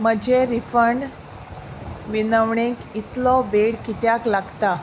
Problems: constant background noise